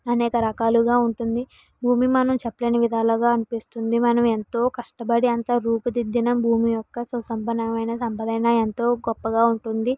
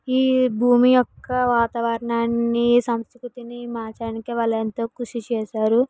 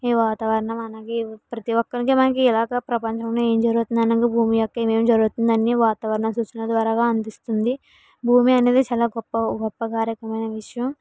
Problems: background conversations at intervals